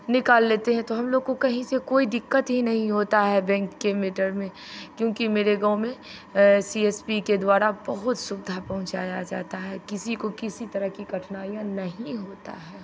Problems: constant background noise